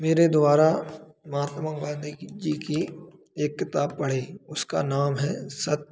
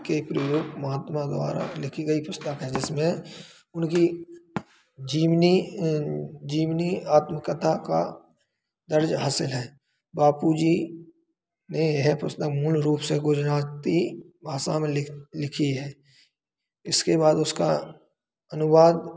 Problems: constant background noise